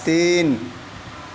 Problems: none marked